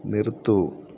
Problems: low volume